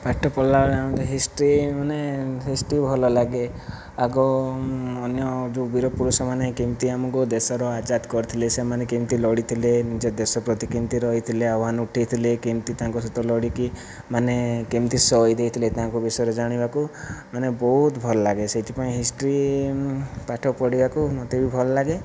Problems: none marked